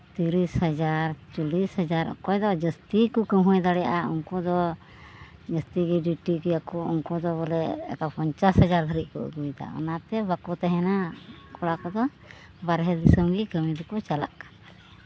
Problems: none marked